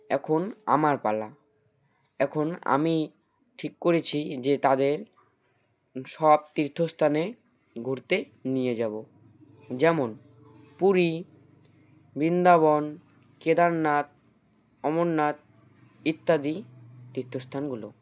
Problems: none marked